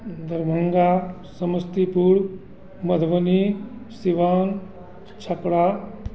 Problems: constant background noise, background conversations at intervals